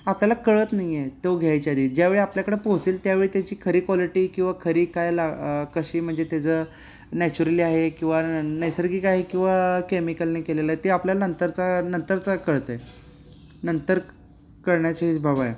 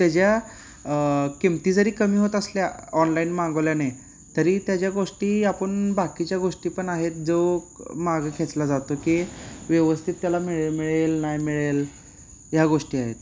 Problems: background sounds at intervals